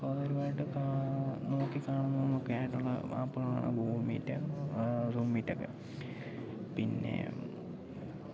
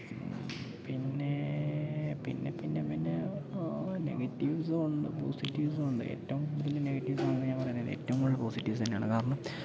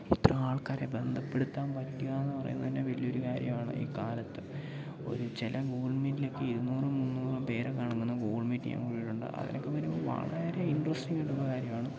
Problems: none marked